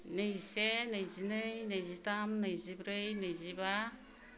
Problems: low volume